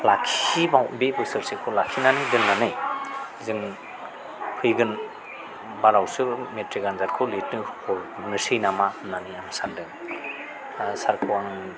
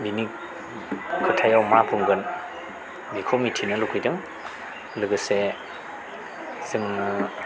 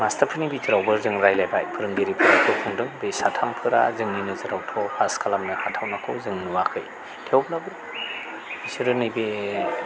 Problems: low volume